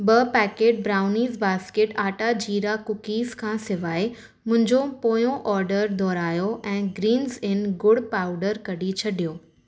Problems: none marked